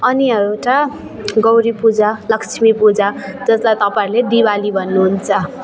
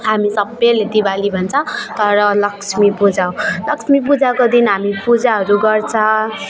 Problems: none marked